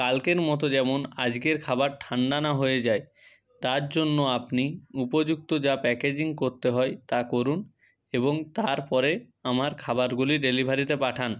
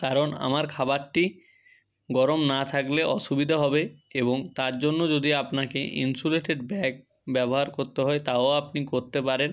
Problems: constant background noise